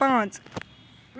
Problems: constant background noise